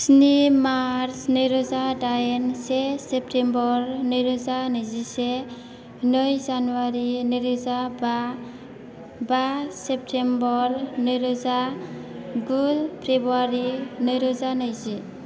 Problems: background sounds at intervals